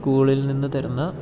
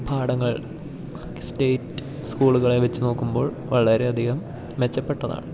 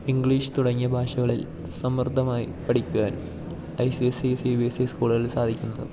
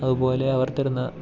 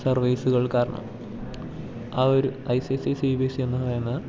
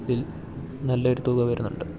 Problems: background sounds at intervals